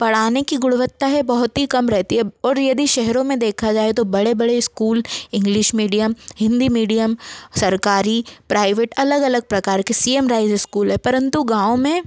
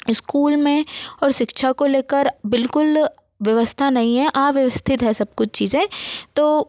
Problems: background sounds at intervals